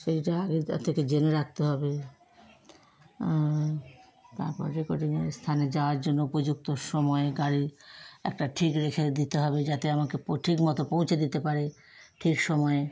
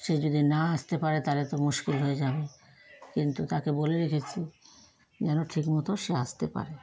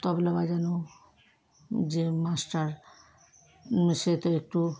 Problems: none marked